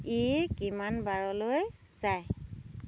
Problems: constant background noise